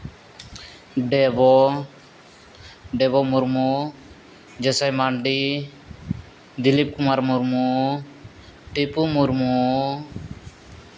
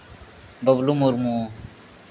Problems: constant background noise